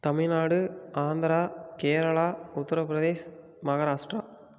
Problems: none marked